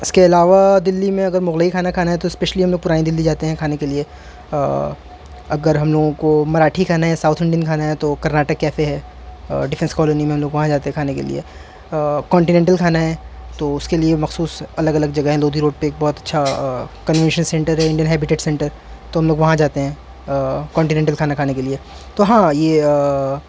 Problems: constant background noise